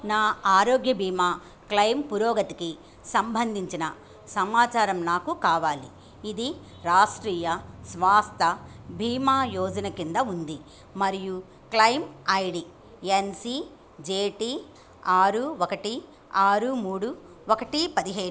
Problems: none marked